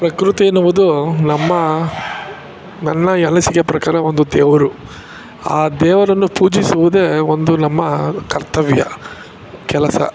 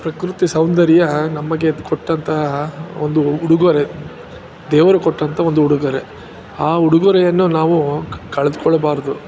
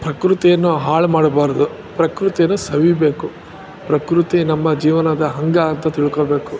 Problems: background sounds at intervals